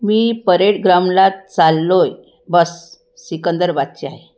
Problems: none marked